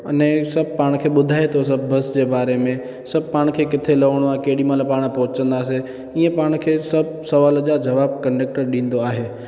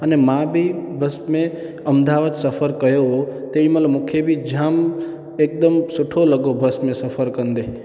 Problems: constant background noise, echo